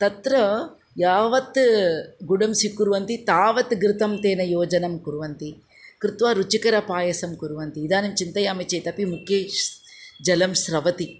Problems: none marked